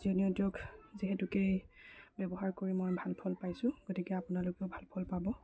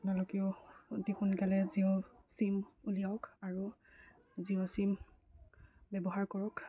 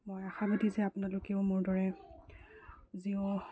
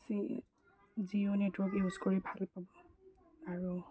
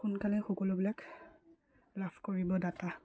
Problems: low volume